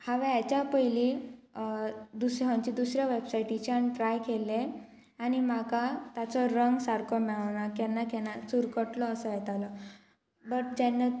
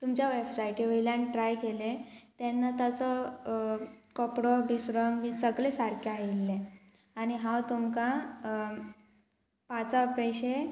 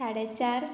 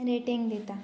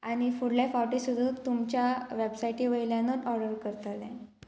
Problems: constant background noise